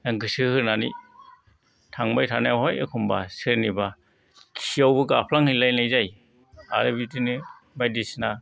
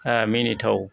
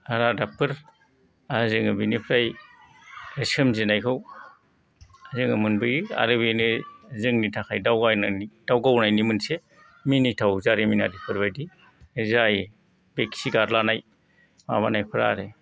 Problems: none marked